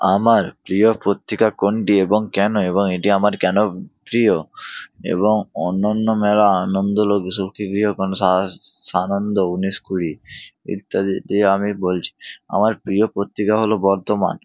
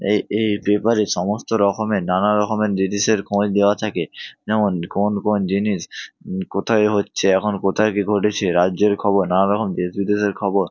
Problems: none marked